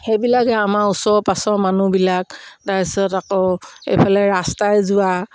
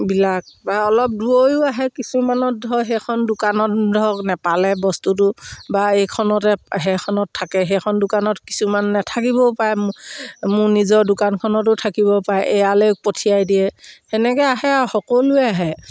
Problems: background sounds at intervals